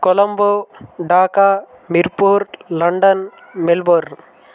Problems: constant background noise, background conversations at intervals